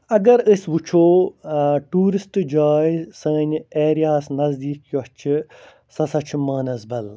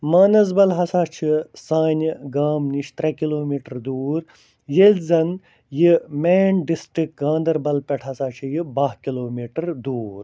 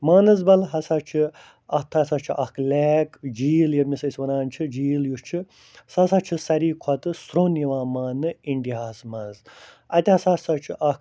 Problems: none marked